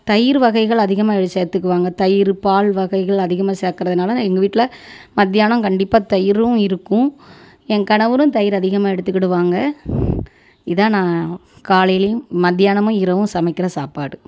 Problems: none marked